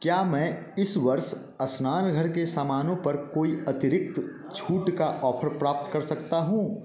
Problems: none marked